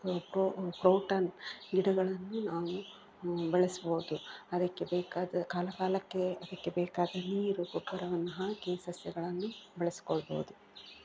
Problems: background sounds at intervals, low volume